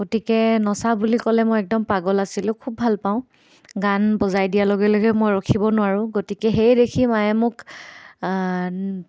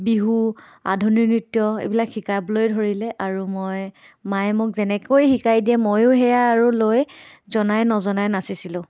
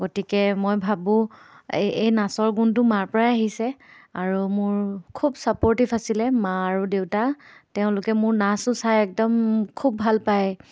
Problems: none marked